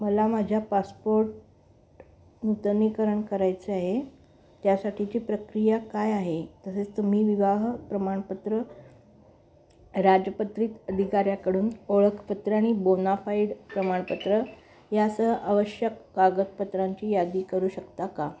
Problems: constant background noise, continuous background conversations